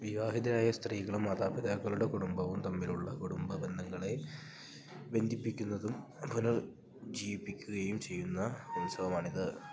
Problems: low volume